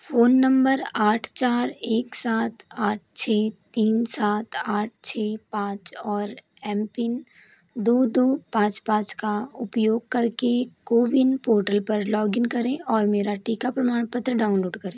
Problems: none marked